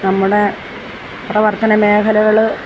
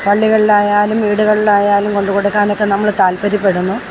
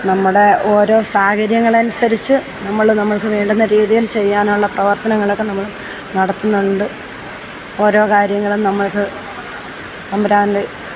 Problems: constant background noise